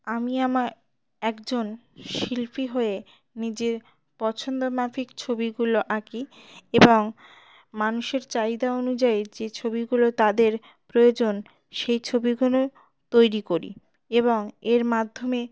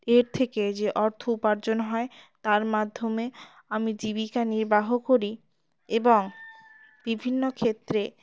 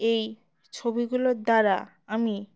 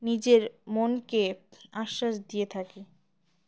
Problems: none marked